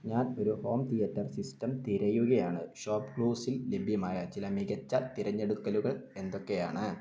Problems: low volume